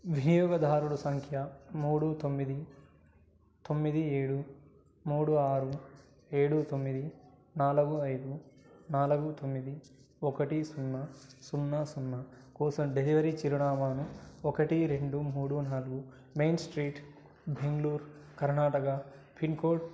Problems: none marked